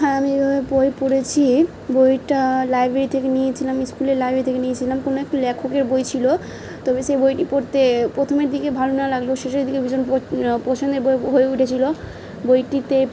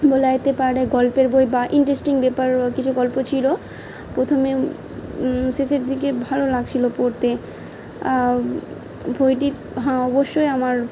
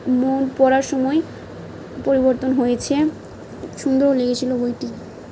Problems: background sounds at intervals